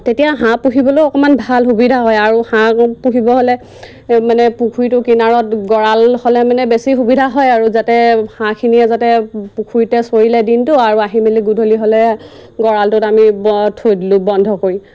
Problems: constant background noise